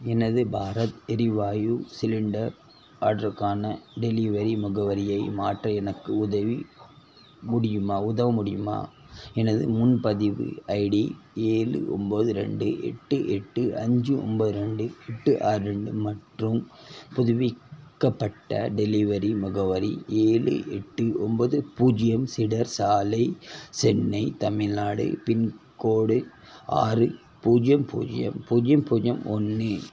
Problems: constant background noise